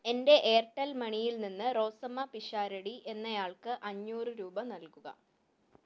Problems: low volume